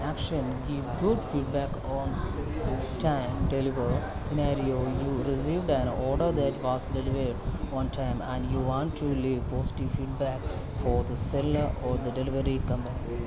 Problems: none marked